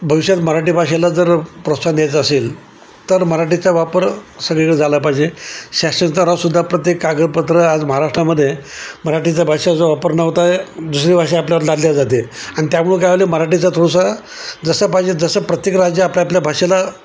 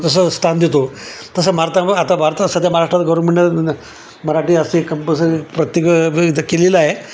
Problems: constant background noise, background conversations at intervals